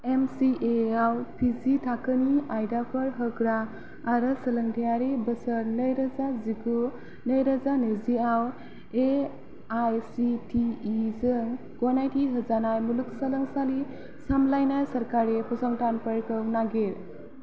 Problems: none marked